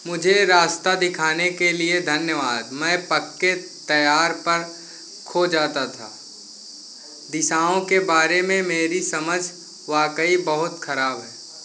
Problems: constant background noise